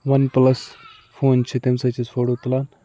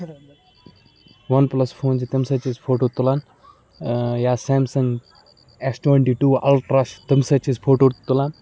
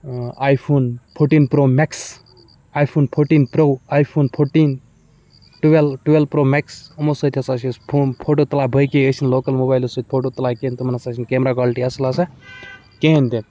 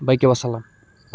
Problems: background sounds at intervals, background conversations at intervals